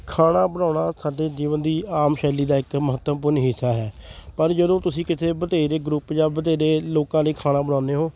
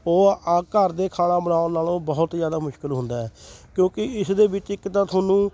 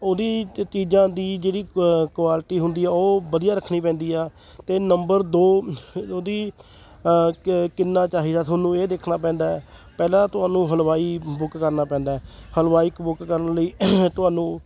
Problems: constant background noise